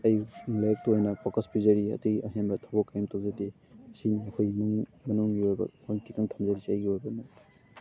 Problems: constant background noise, background conversations at intervals